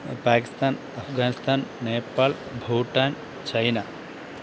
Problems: constant background noise